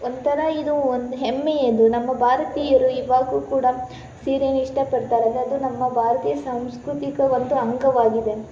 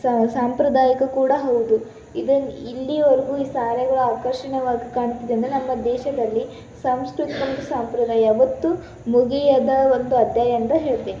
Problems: background sounds at intervals